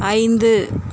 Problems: constant background noise